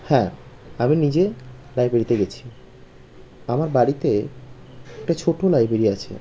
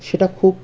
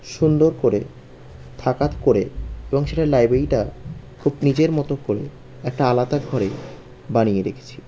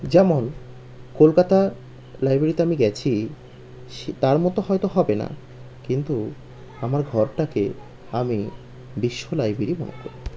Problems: constant background noise